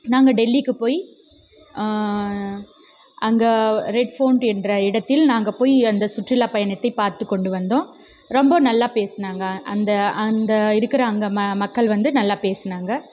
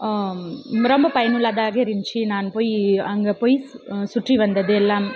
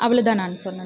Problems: background conversations at intervals